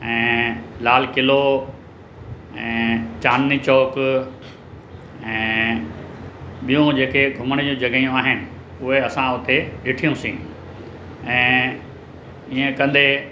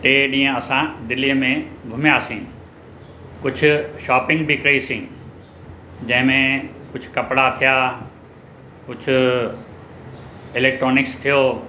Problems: constant background noise